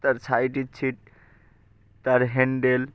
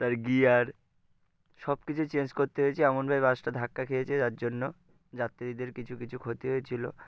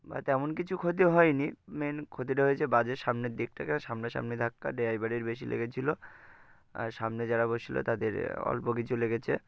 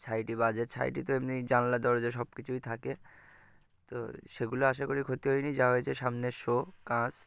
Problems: constant background noise